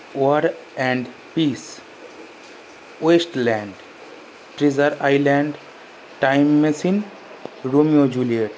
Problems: constant background noise